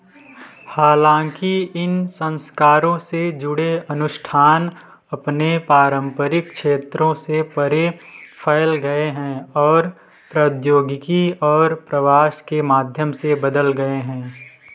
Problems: background sounds at intervals, continuous background conversations